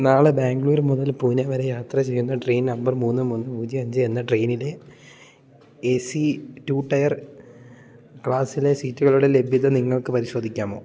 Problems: none marked